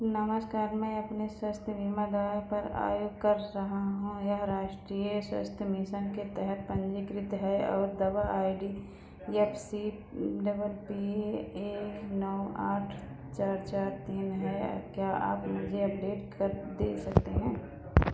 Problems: background sounds at intervals